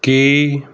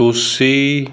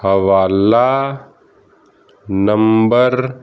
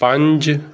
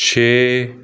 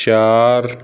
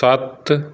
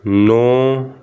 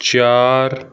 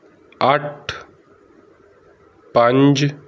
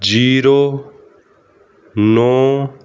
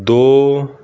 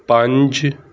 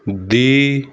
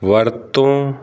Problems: constant background noise